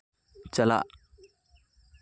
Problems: none marked